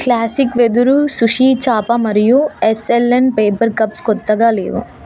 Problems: constant background noise